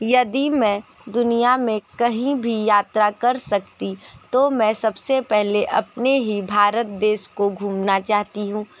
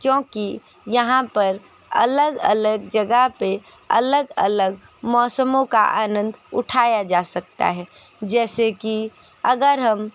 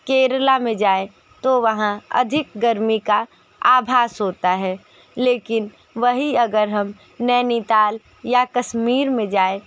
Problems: constant background noise